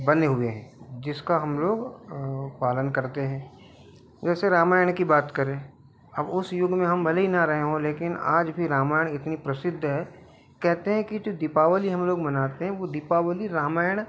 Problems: background sounds at intervals